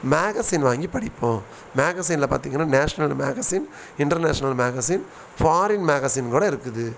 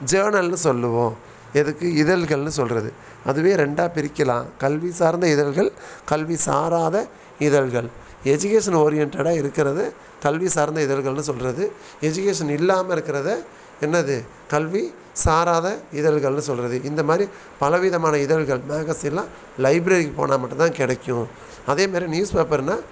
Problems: background sounds at intervals